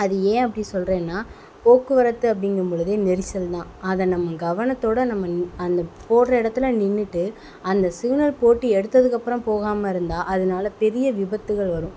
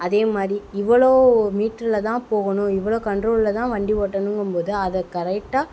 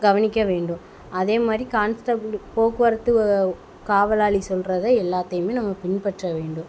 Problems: constant background noise